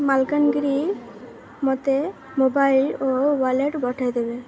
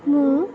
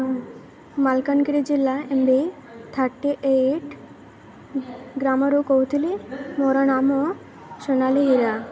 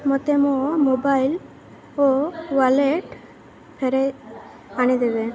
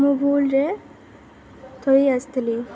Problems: constant background noise, continuous background conversations